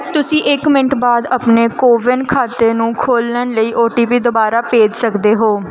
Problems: background sounds at intervals